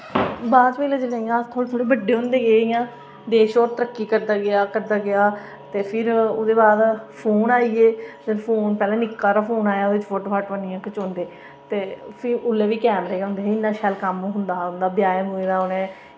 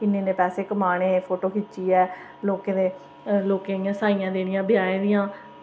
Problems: none marked